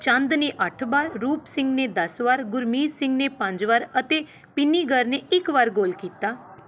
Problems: background conversations at intervals